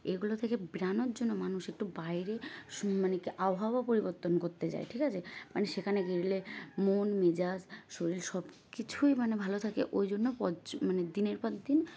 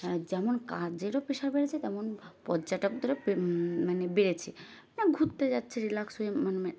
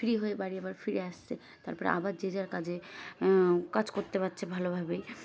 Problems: background sounds at intervals